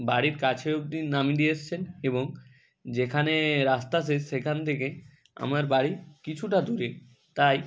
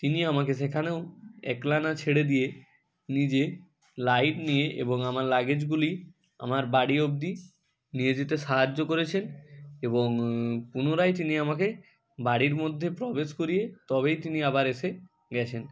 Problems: constant background noise